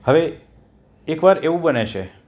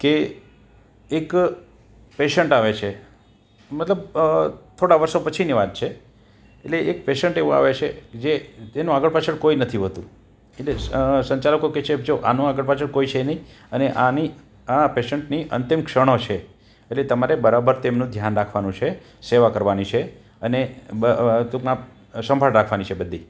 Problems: none marked